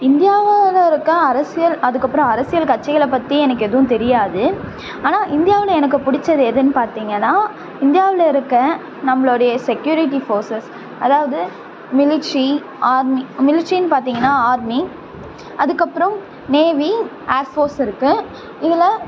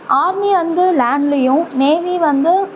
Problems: none marked